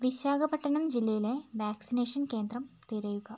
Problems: background sounds at intervals